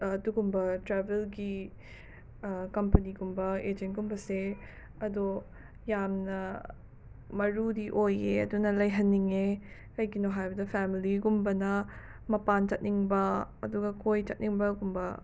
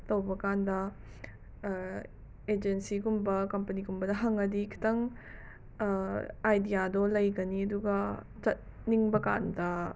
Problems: background sounds at intervals